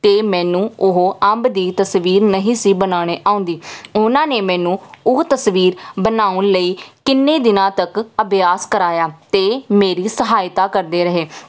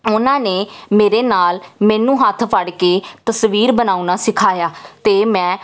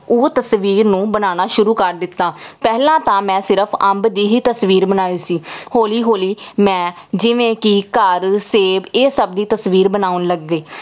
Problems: none marked